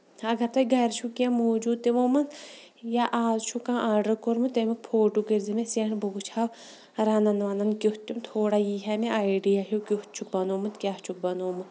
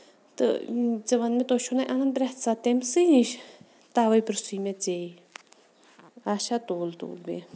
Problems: background sounds at intervals